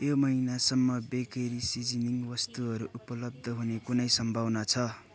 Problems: continuous background conversations